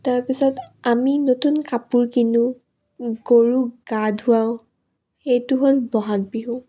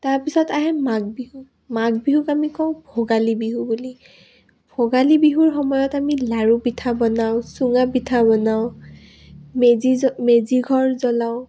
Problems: none marked